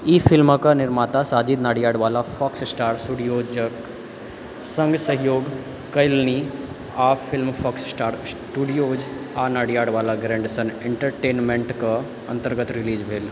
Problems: background conversations at intervals